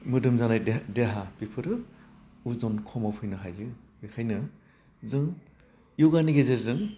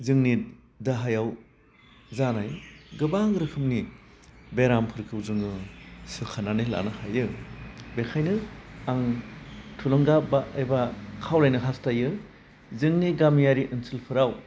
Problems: constant background noise